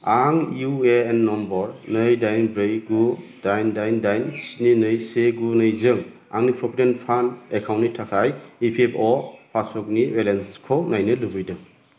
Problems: constant background noise